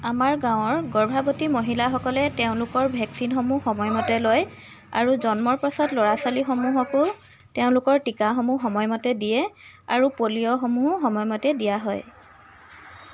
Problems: constant background noise, background conversations at intervals